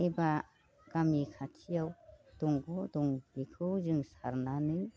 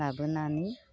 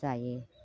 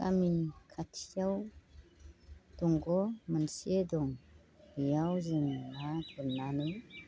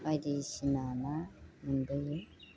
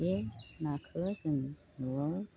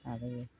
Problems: constant background noise